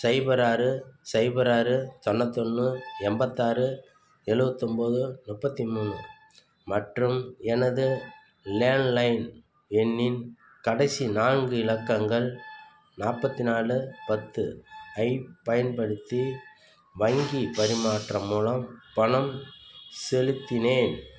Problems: constant background noise